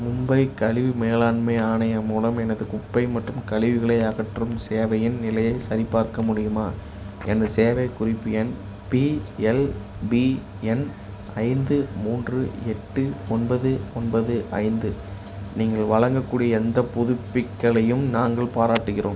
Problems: none marked